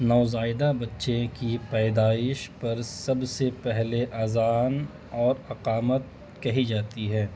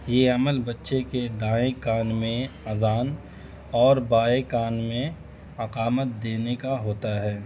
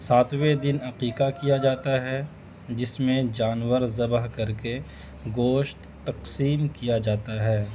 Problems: constant background noise